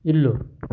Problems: background sounds at intervals